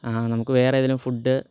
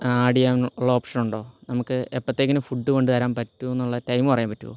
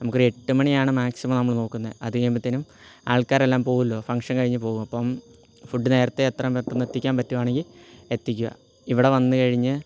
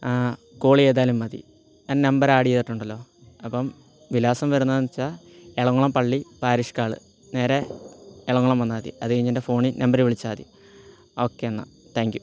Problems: low volume